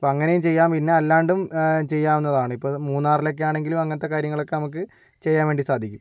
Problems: none marked